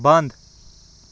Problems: background sounds at intervals